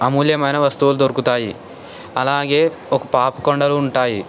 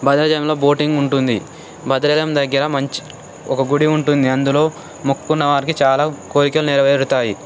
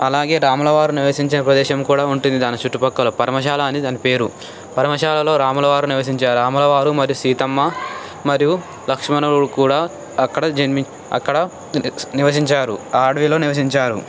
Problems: constant background noise